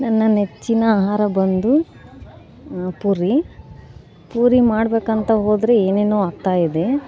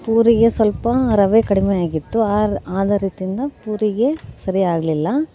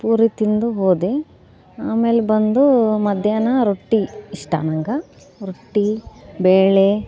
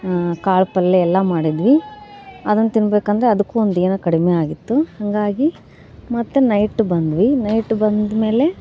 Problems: none marked